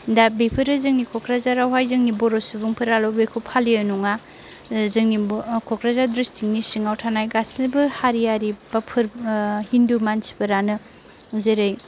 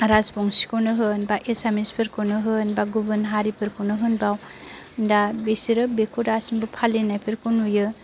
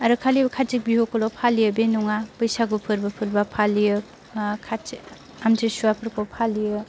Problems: none marked